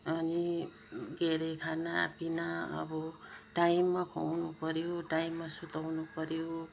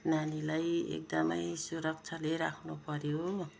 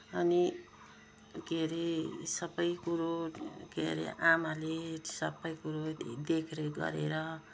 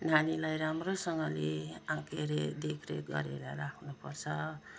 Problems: low volume